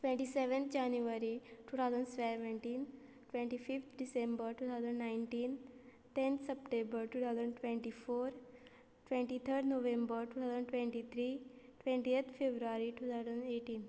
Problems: low volume